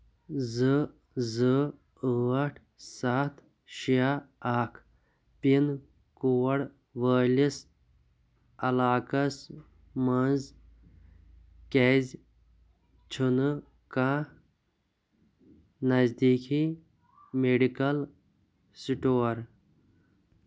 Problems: none marked